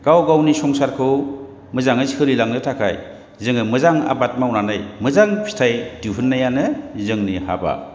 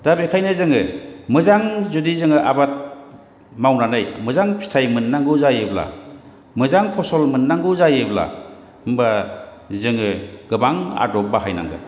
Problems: none marked